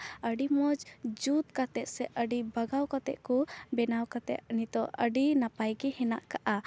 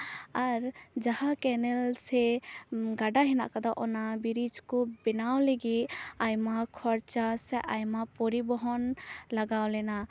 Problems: none marked